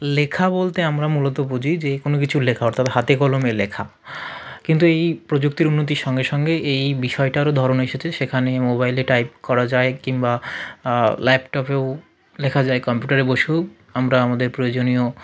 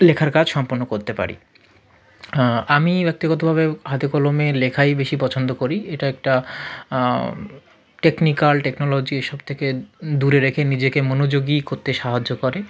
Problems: background conversations at intervals